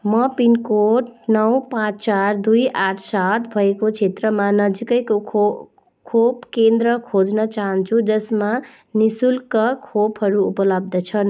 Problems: background sounds at intervals